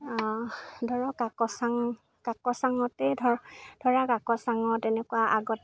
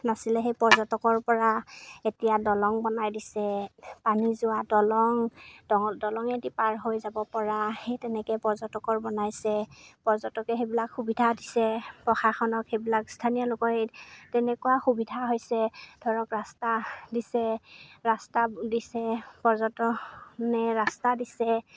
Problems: background sounds at intervals